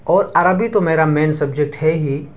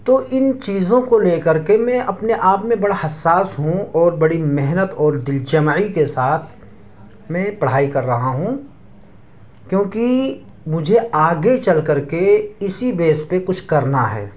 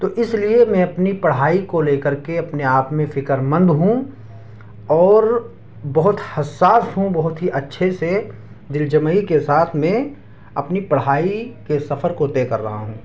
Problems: none marked